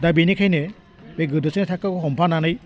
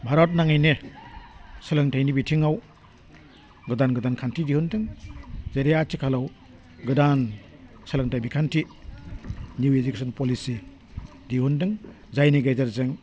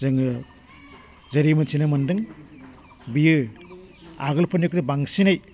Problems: none marked